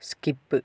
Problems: none marked